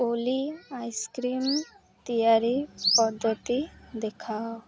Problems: constant background noise